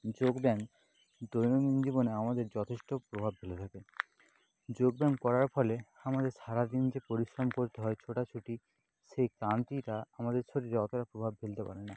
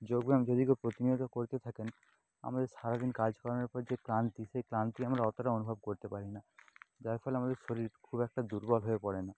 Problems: constant background noise, low volume